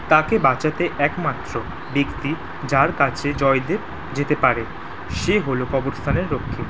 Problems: constant background noise